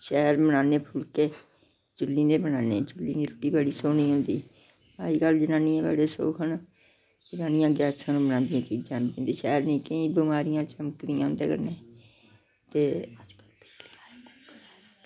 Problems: background sounds at intervals